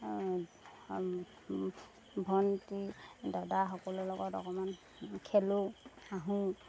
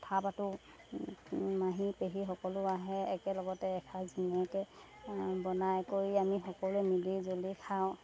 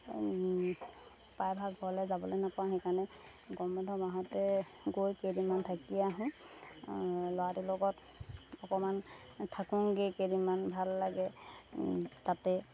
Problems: background sounds at intervals